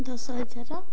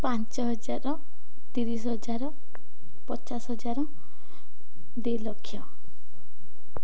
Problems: none marked